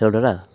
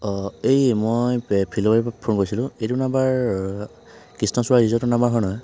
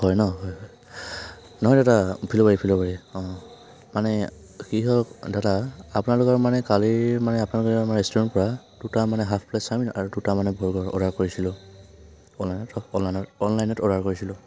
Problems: background sounds at intervals